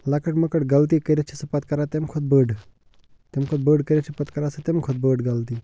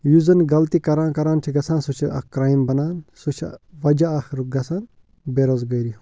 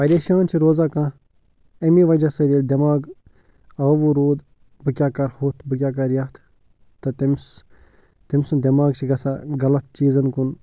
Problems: low volume